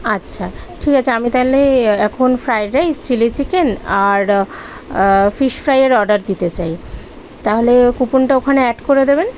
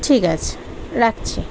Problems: constant background noise